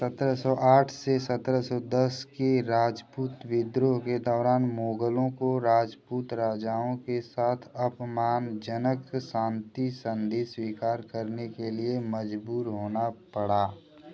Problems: constant background noise